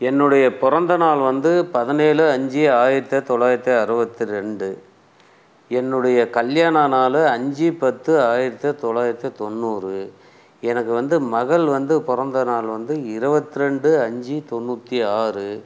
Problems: background sounds at intervals